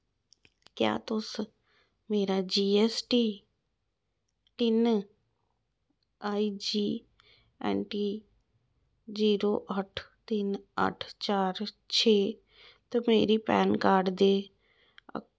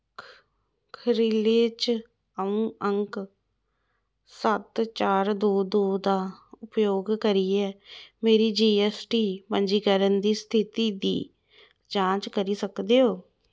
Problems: none marked